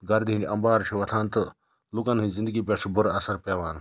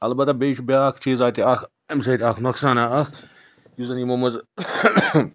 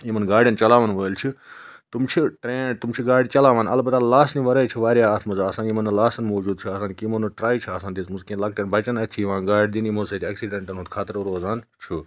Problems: background sounds at intervals